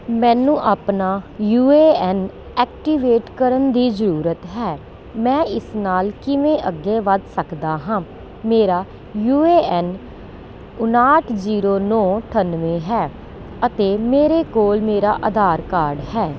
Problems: none marked